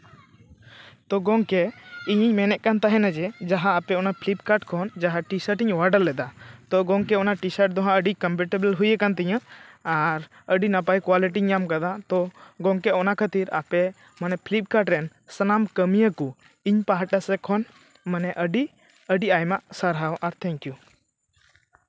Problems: none marked